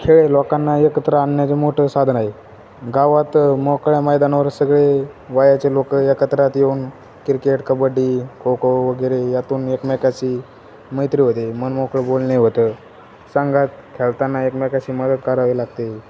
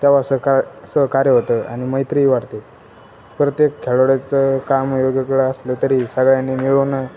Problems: none marked